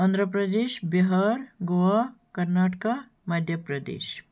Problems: constant background noise